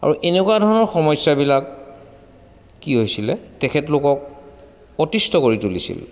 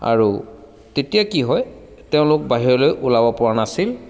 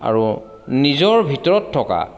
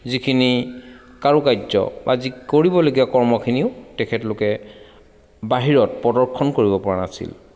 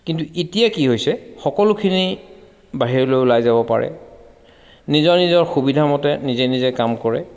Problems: constant background noise, echo